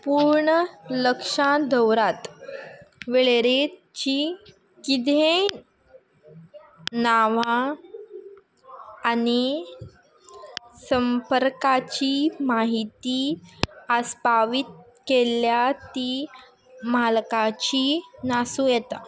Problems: constant background noise